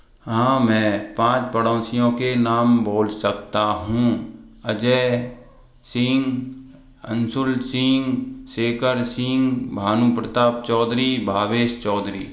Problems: echo